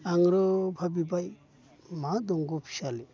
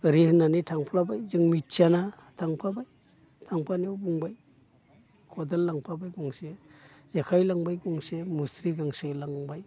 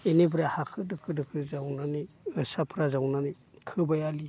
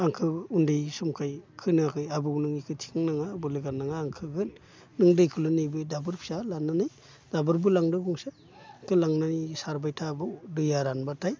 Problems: constant background noise